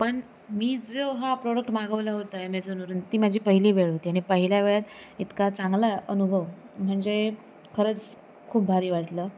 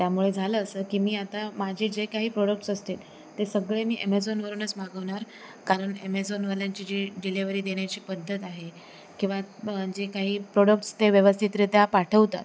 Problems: none marked